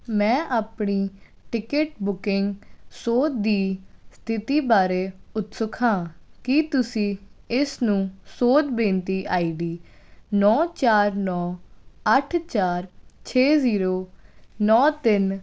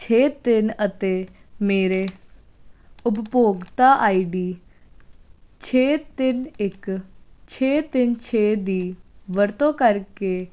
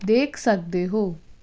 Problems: none marked